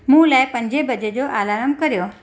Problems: none marked